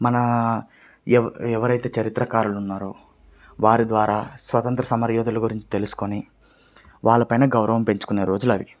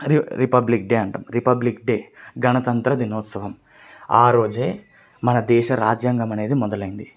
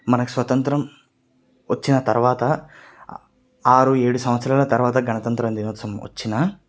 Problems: none marked